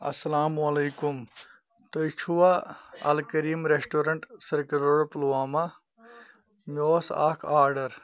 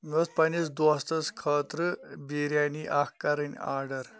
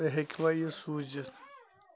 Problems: continuous background conversations